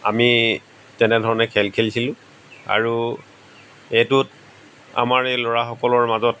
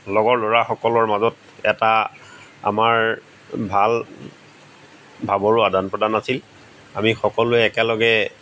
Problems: background sounds at intervals